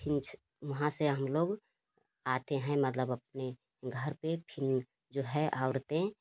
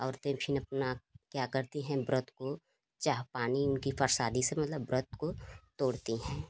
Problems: constant background noise